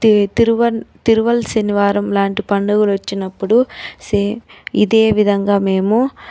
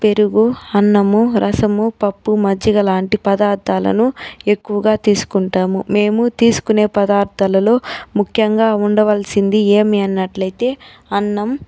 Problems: none marked